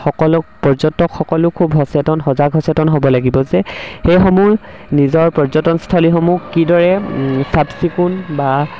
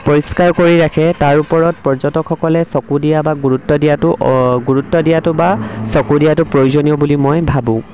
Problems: background sounds at intervals